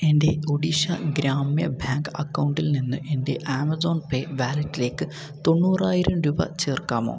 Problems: none marked